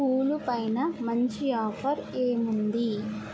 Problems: background sounds at intervals, low volume